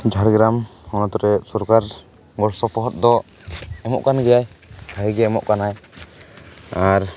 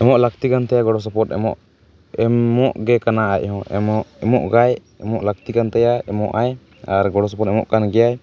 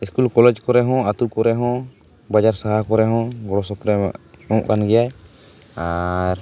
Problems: constant background noise